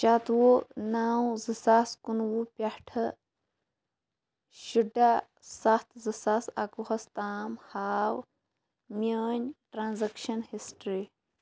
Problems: none marked